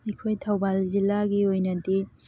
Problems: background sounds at intervals